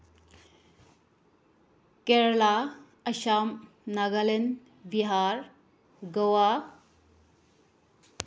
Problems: low volume